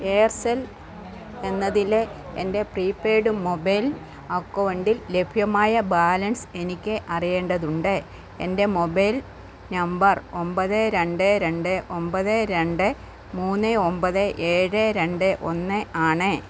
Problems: constant background noise